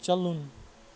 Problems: background sounds at intervals